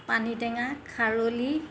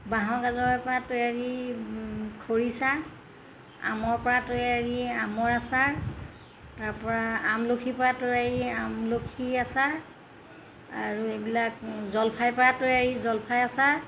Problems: constant background noise